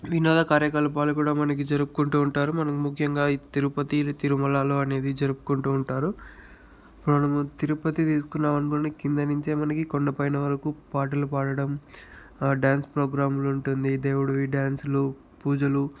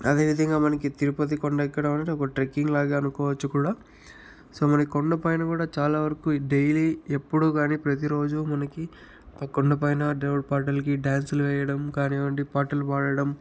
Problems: none marked